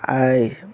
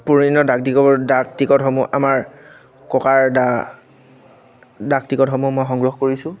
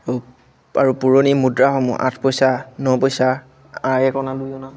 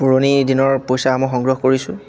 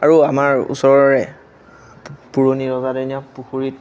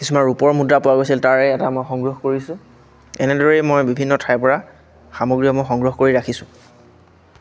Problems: none marked